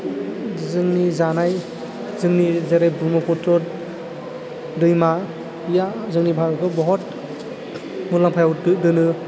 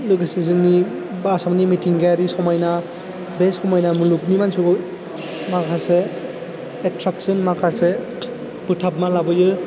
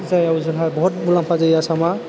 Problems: constant background noise, low volume